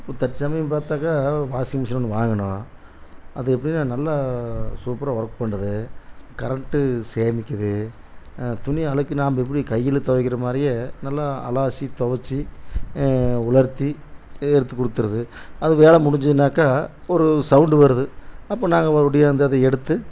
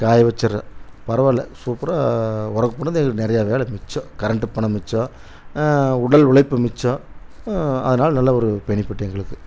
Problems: none marked